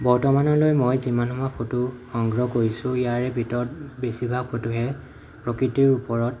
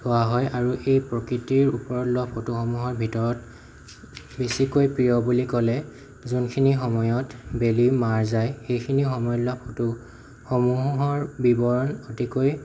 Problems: background sounds at intervals